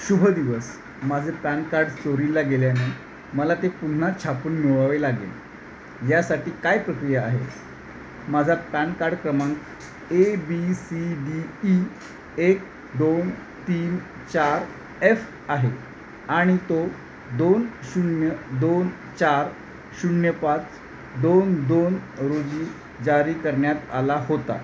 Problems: constant background noise